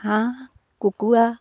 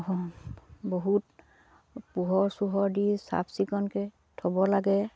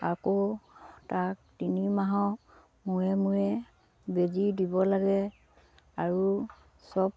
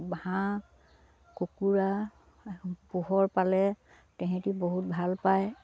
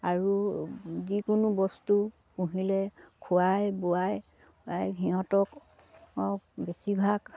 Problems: low volume